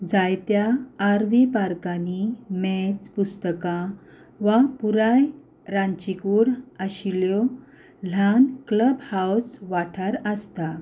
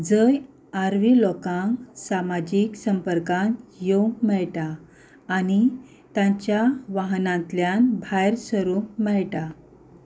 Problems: background sounds at intervals